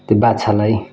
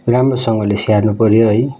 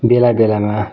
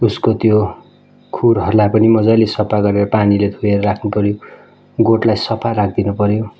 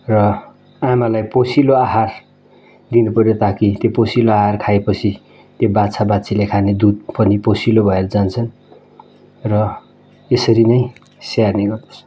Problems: background sounds at intervals